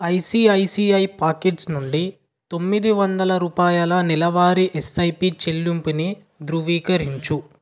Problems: none marked